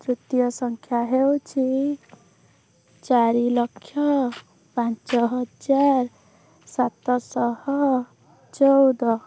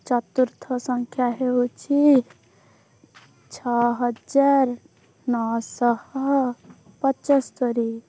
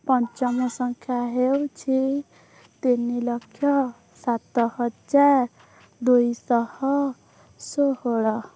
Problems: background sounds at intervals